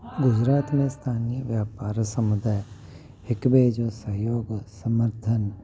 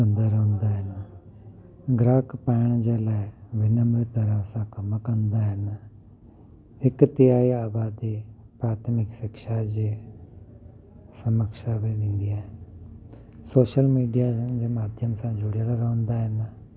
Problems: constant background noise, low volume